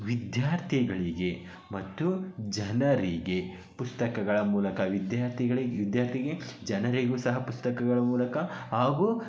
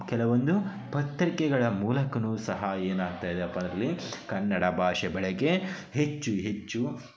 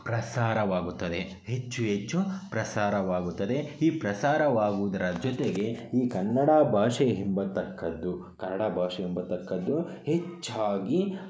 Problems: background conversations at intervals